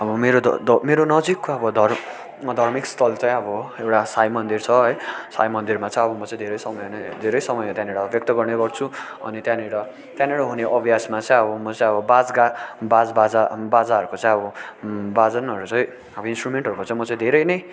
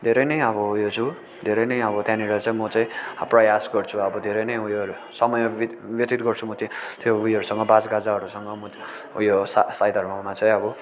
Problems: constant background noise, continuous background conversations